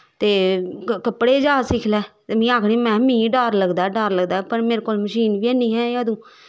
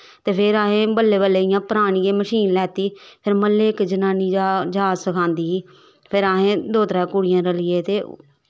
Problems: none marked